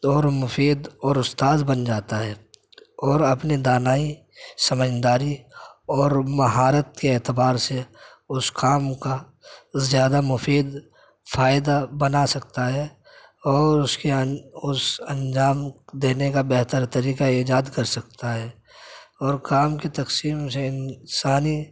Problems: none marked